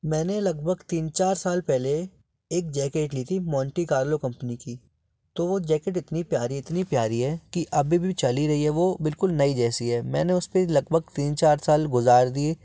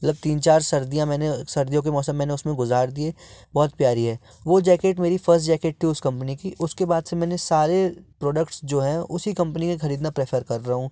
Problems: background sounds at intervals